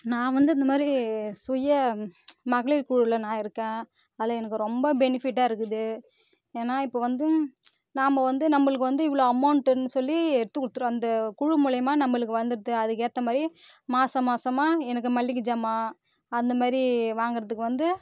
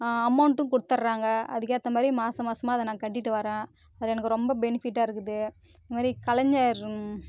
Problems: constant background noise